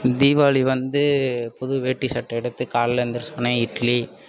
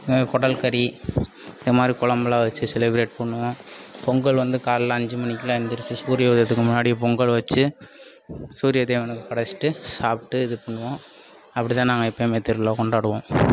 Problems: constant background noise